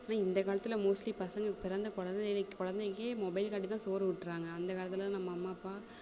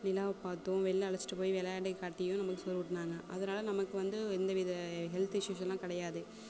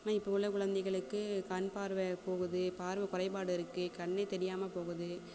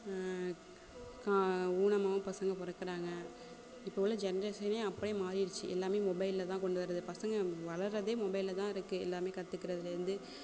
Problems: constant background noise, background conversations at intervals